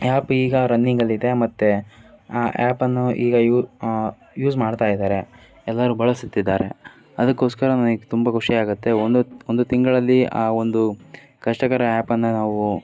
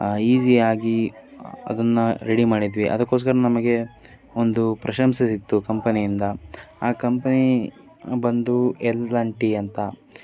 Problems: none marked